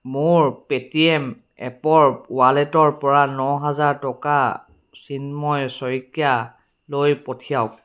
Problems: none marked